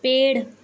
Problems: background sounds at intervals